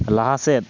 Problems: constant background noise